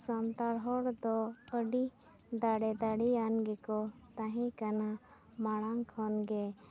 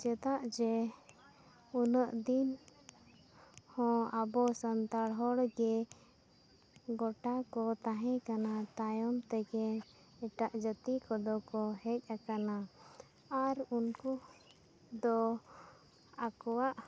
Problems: none marked